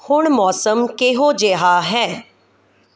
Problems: none marked